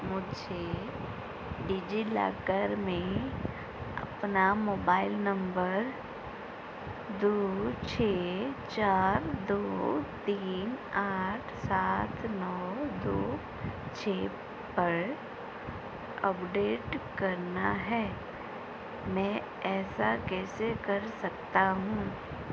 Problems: constant background noise